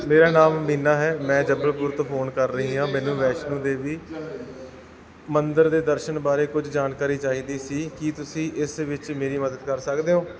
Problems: background sounds at intervals